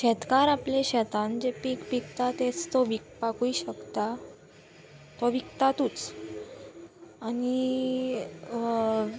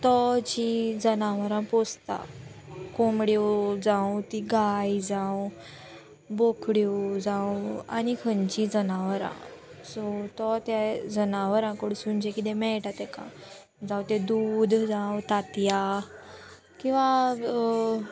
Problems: constant background noise